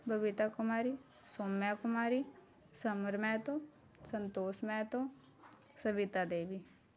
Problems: constant background noise